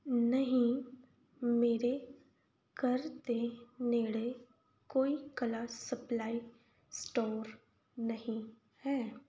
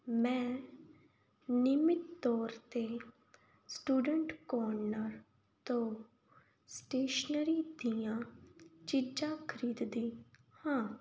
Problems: background sounds at intervals